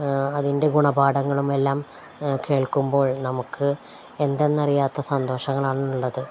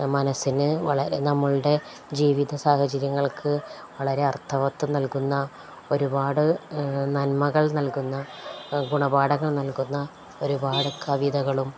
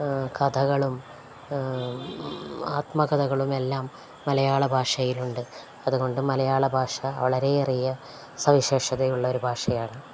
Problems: none marked